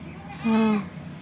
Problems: none marked